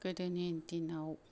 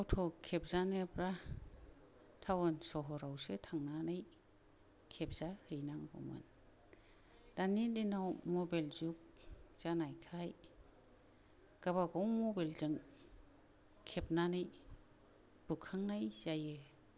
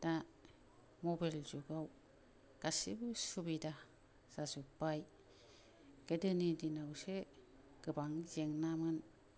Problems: low volume